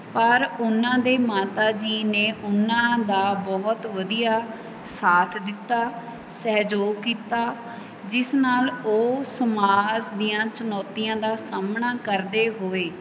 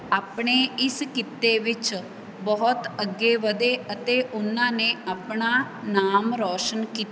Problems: background sounds at intervals